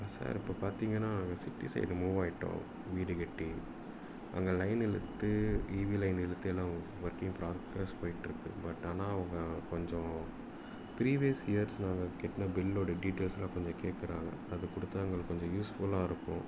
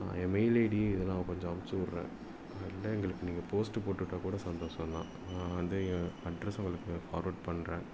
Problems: background sounds at intervals